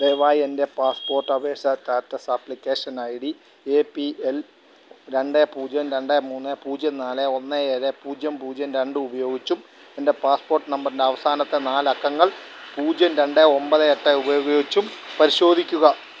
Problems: none marked